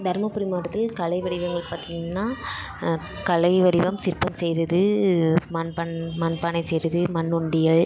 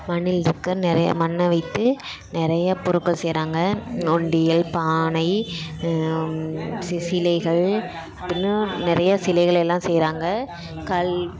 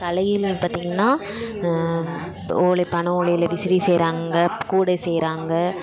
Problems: none marked